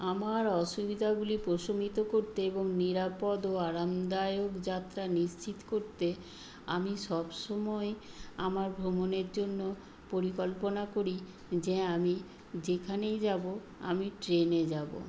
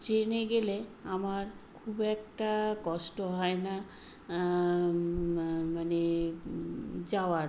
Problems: background sounds at intervals